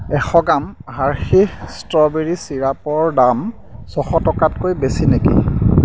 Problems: none marked